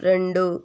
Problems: low volume